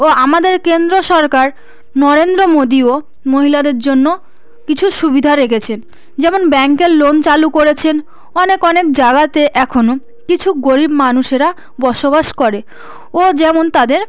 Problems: background sounds at intervals